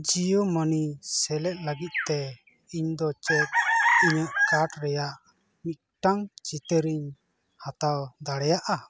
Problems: constant background noise, background conversations at intervals